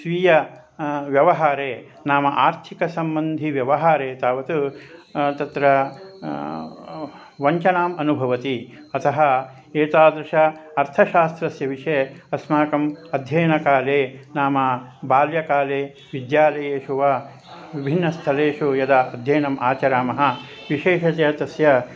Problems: constant background noise, background conversations at intervals